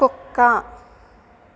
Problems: constant background noise